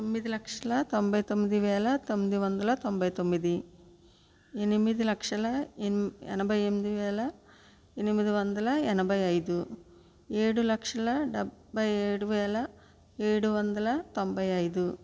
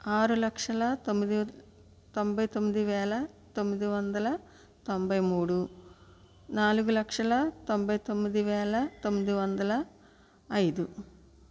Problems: none marked